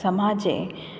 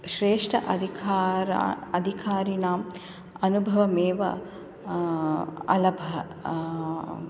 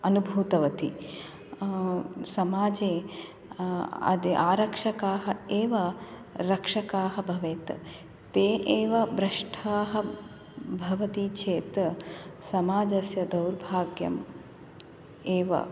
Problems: none marked